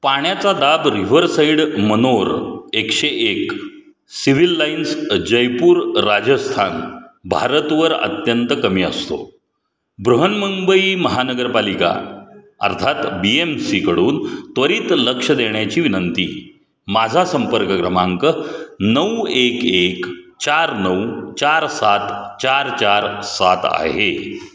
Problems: background sounds at intervals